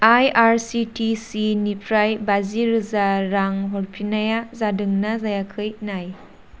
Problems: constant background noise